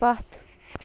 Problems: constant background noise, low volume